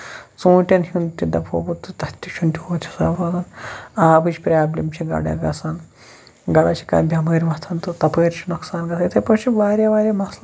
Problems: background sounds at intervals